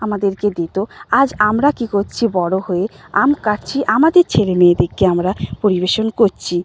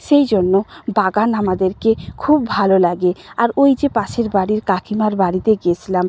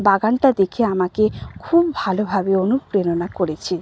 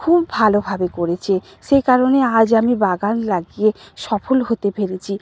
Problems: none marked